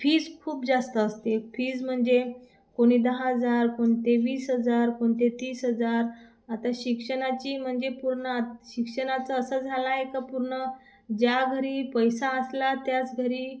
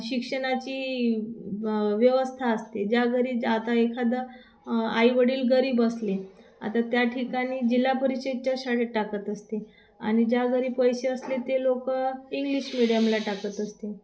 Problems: constant background noise, background conversations at intervals